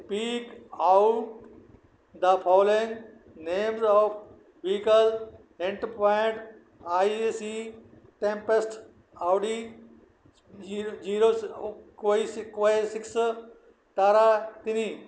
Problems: none marked